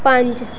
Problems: constant background noise